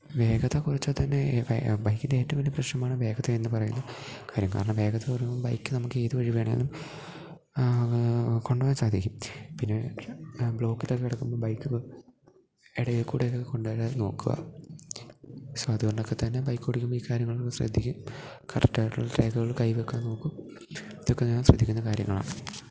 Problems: low volume